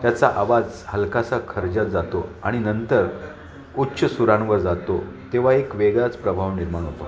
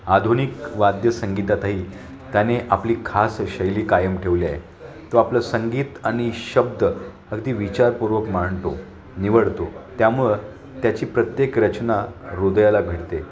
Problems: none marked